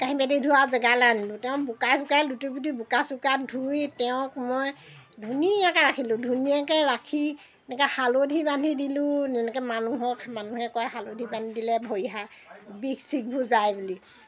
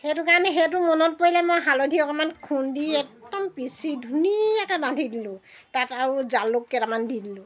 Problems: background sounds at intervals